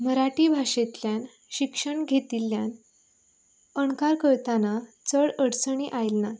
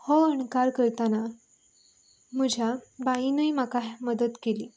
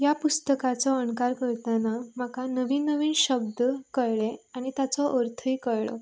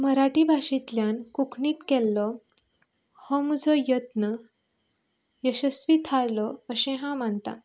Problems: none marked